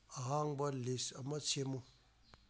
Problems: constant background noise